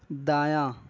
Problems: background sounds at intervals